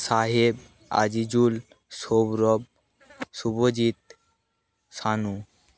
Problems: background sounds at intervals